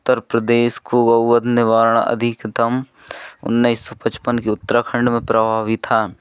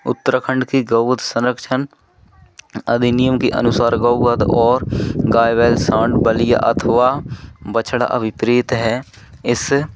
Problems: none marked